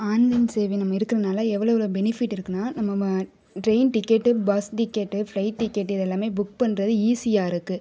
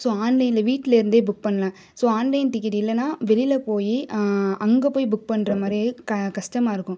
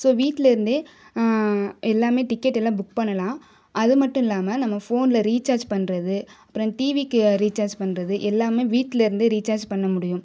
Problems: none marked